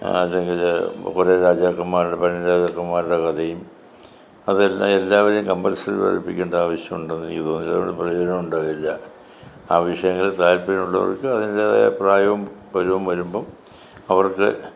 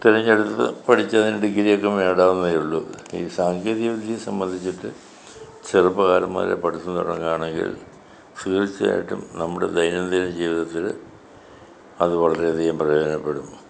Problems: continuous background conversations